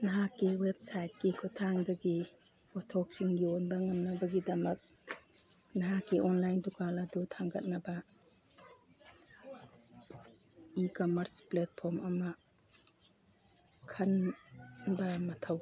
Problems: background sounds at intervals, background conversations at intervals